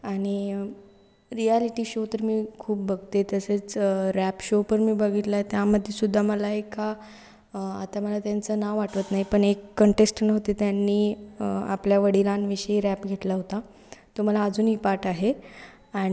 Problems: none marked